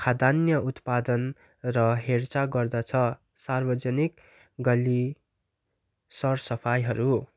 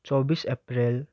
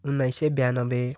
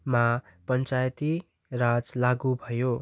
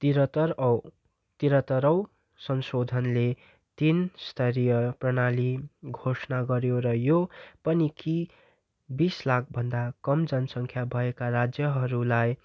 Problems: none marked